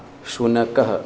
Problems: constant background noise, continuous background conversations